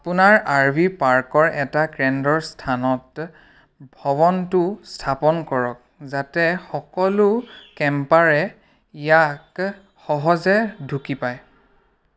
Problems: background sounds at intervals